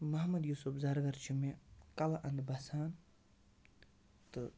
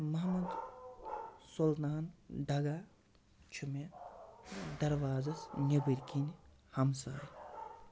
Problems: constant background noise, low volume